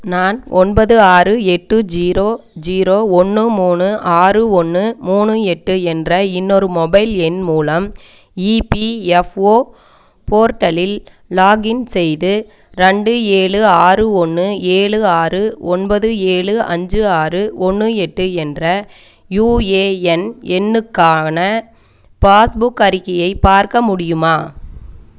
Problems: none marked